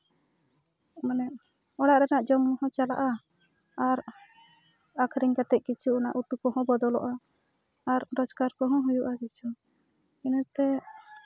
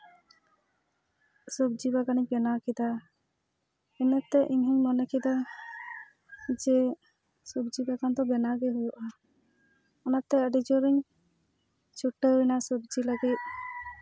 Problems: background sounds at intervals